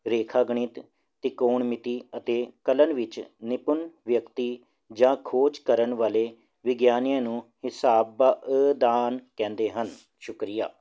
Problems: none marked